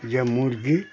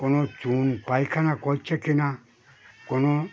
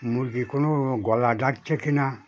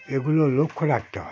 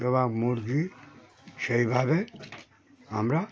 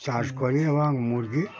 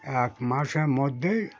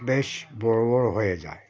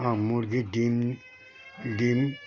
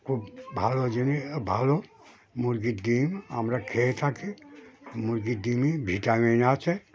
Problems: none marked